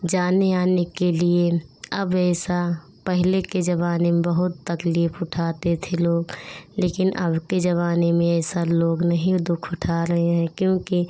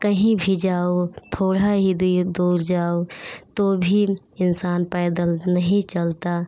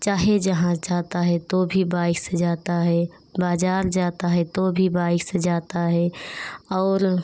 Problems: none marked